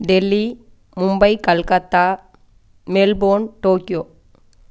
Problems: none marked